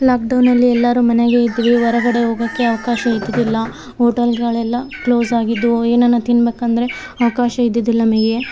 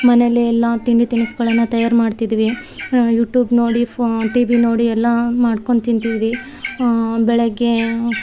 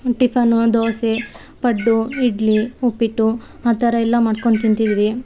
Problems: background sounds at intervals